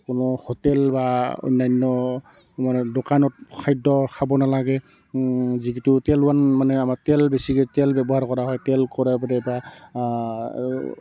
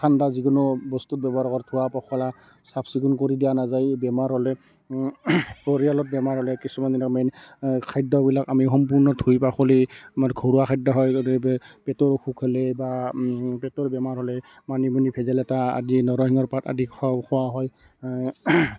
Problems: constant background noise, continuous background conversations